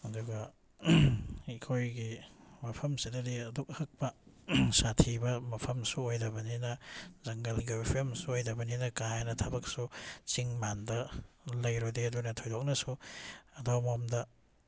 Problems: none marked